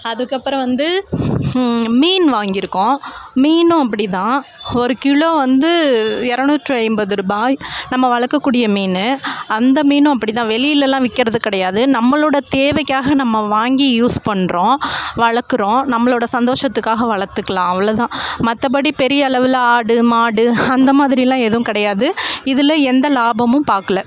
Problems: constant background noise